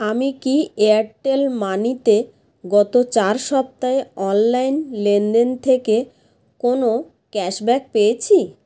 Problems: constant background noise